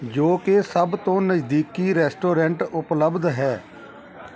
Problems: continuous background conversations